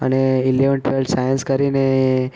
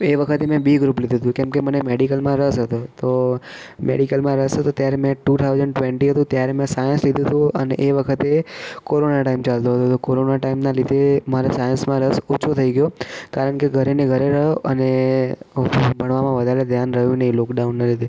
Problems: background sounds at intervals